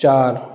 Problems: echo